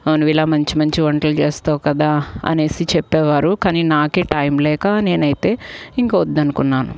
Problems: none marked